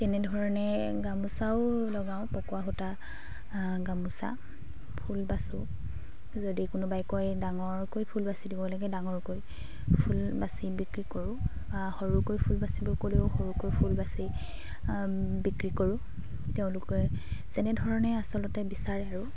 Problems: constant background noise, background conversations at intervals